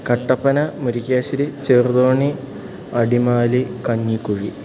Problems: constant background noise, low volume